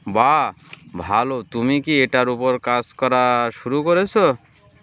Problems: constant background noise